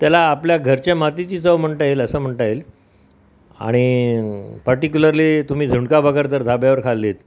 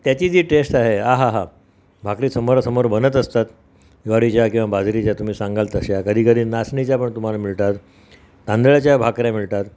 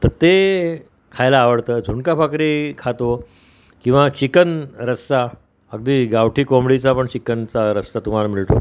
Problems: constant background noise